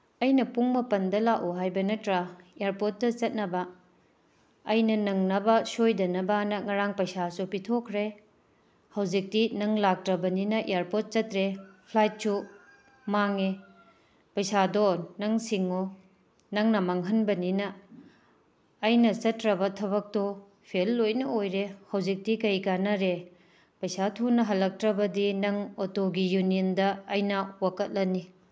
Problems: background sounds at intervals